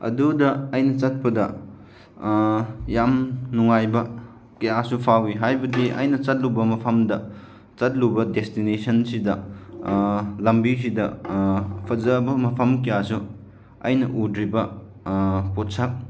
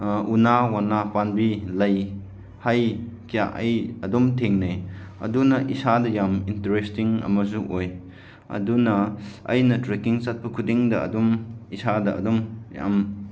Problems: none marked